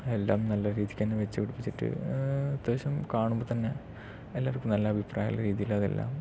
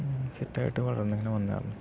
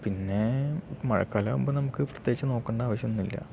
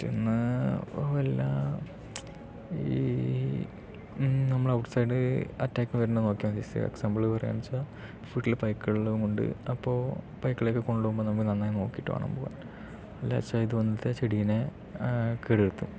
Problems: low volume